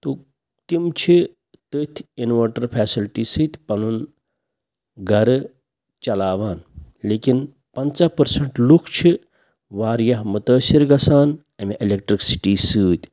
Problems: none marked